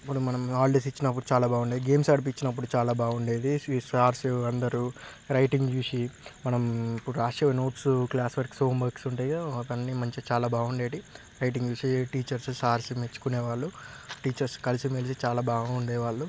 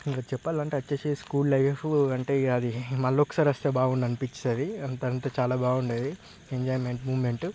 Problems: background sounds at intervals